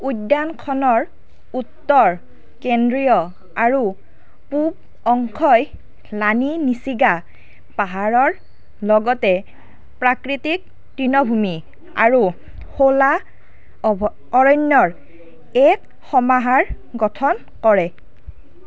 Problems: none marked